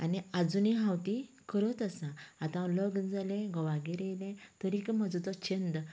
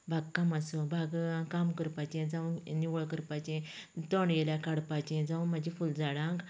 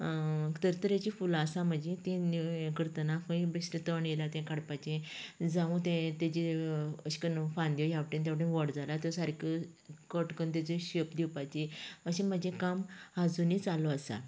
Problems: low volume